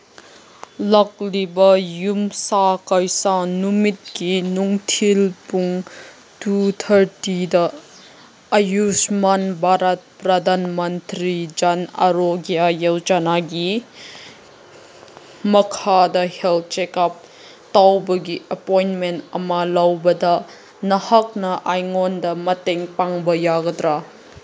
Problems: none marked